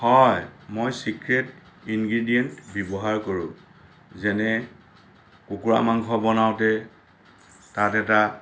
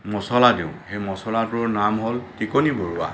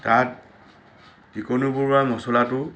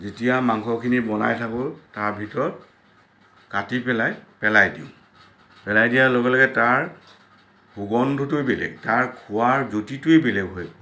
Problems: constant background noise